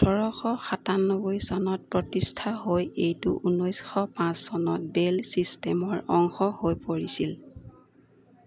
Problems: none marked